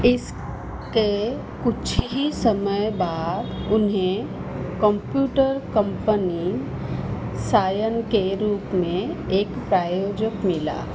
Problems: none marked